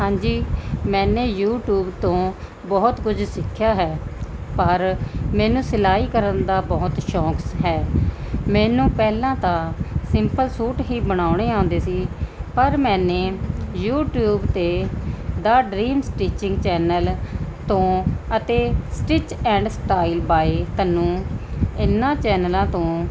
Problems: none marked